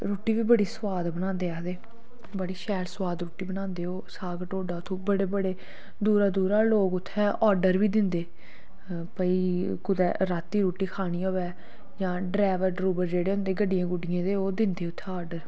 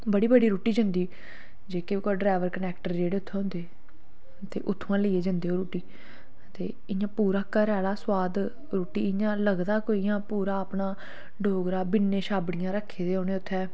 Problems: none marked